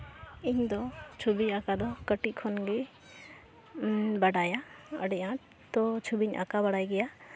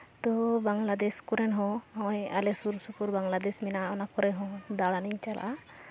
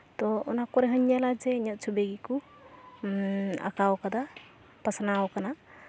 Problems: constant background noise